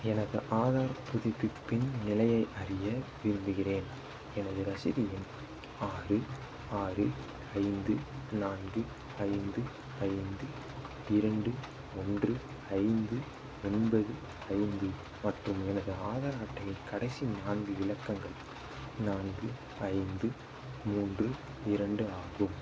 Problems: constant background noise, low volume